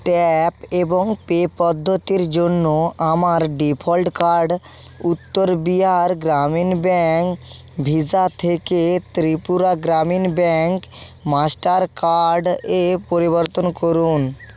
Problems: constant background noise